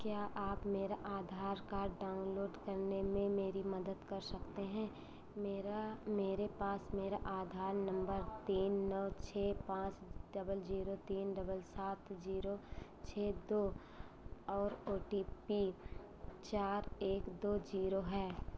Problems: low volume